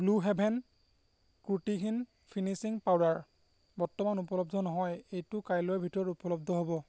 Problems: none marked